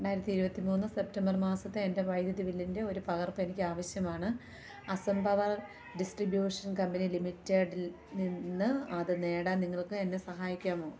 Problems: low volume